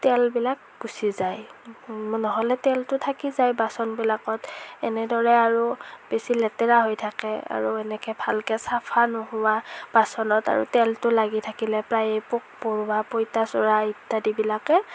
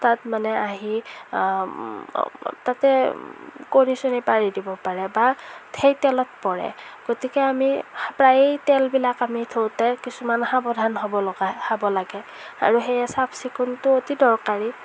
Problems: none marked